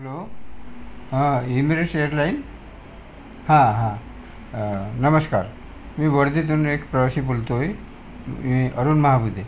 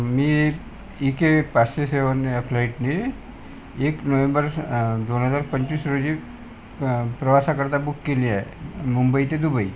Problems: constant background noise